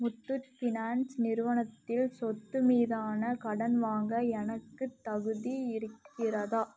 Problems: low volume